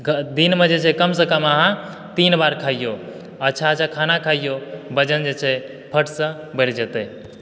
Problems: background sounds at intervals